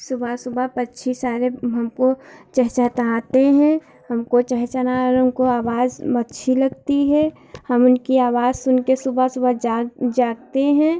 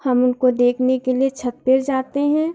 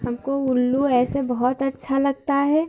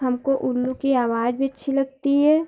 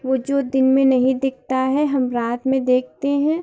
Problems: constant background noise, continuous background conversations